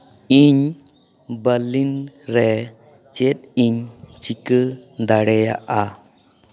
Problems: background conversations at intervals